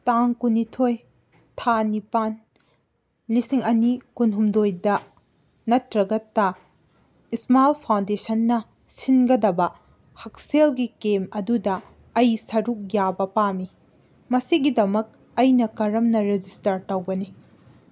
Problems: none marked